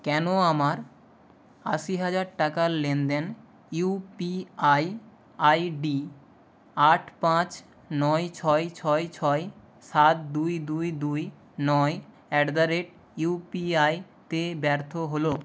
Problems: none marked